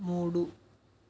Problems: constant background noise, low volume